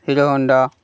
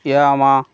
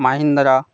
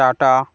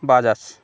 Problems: constant background noise